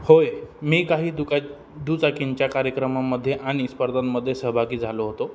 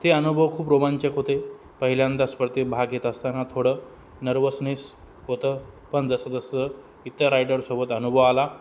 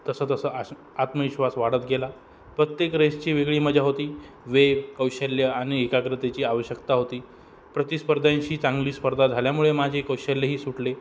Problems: none marked